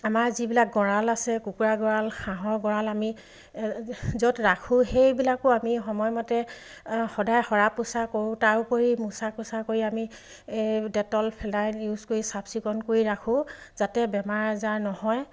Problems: none marked